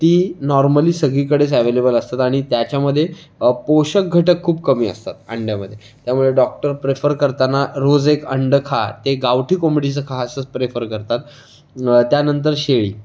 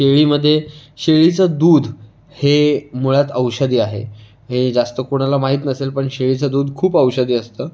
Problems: constant background noise